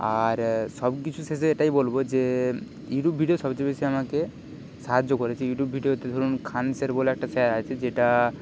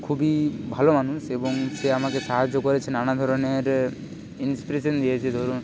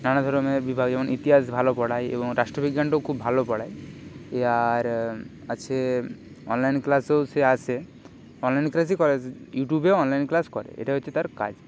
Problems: constant background noise, background conversations at intervals